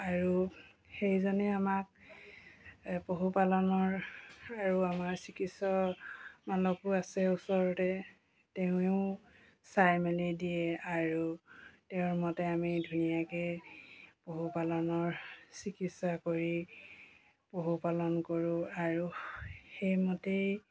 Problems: background sounds at intervals